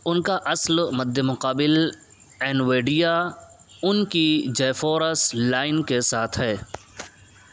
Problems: constant background noise